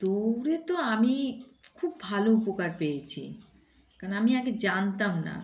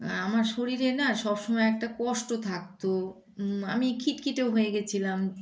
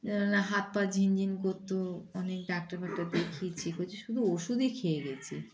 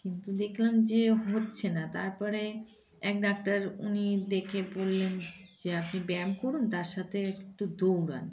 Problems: background sounds at intervals, background conversations at intervals